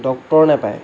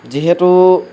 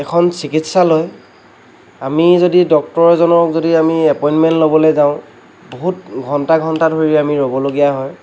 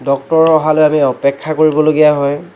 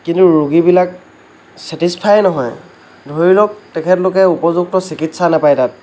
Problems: none marked